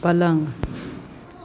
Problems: constant background noise, continuous background conversations